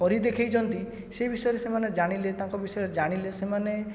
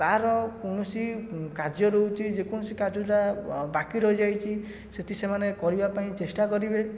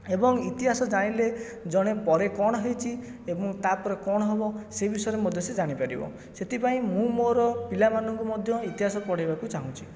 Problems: background sounds at intervals